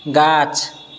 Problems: none marked